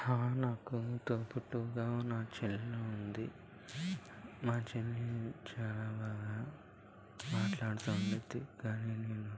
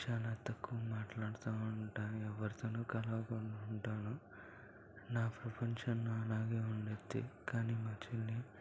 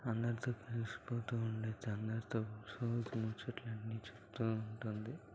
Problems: constant background noise, low volume